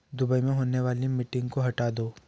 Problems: background sounds at intervals